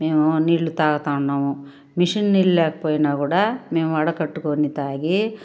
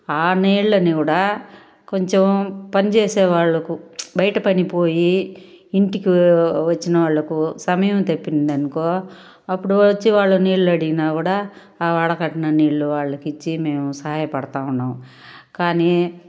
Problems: background sounds at intervals